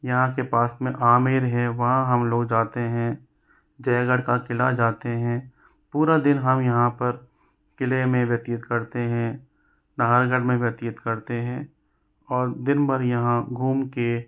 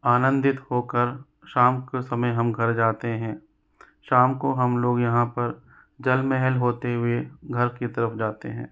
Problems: none marked